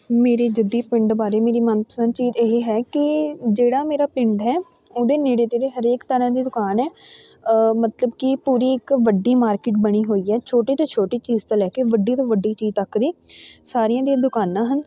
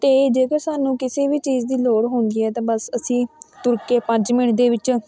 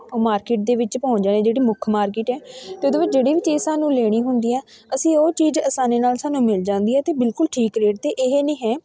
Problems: continuous background conversations